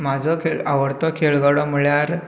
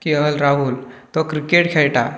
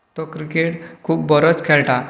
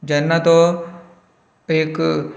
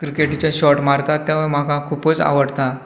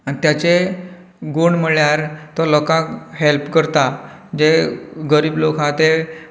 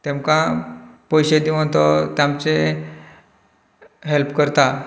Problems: background conversations at intervals